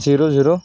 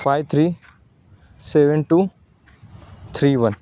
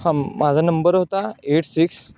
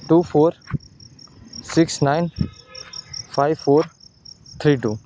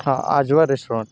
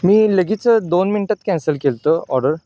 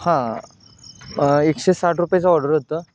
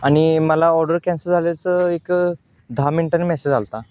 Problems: constant background noise, background conversations at intervals